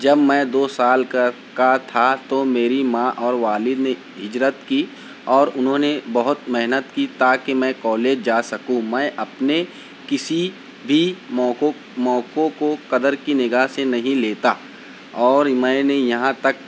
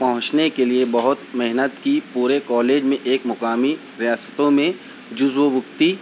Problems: none marked